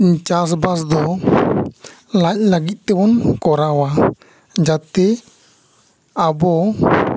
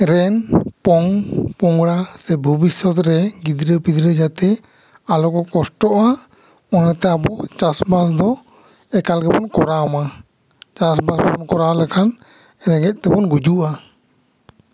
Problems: background sounds at intervals